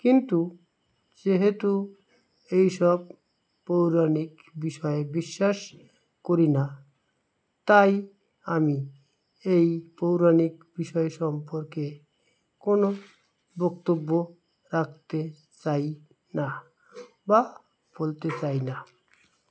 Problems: constant background noise